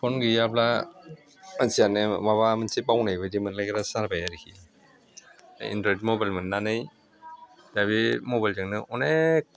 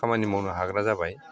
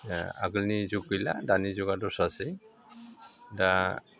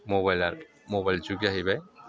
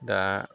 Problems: constant background noise